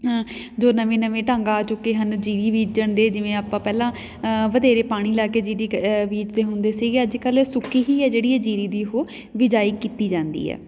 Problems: background sounds at intervals, background conversations at intervals